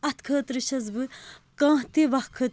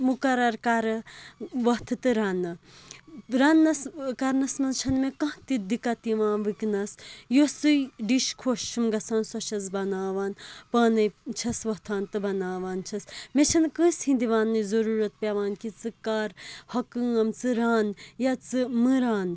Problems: constant background noise